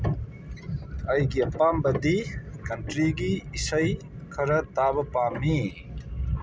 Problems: background sounds at intervals